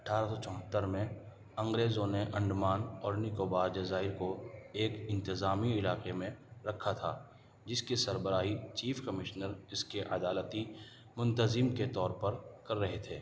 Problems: background sounds at intervals